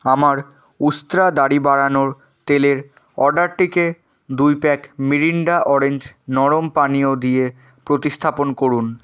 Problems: none marked